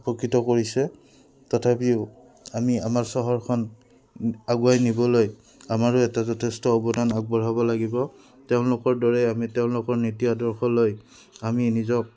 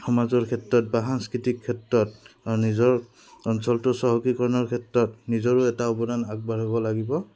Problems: background sounds at intervals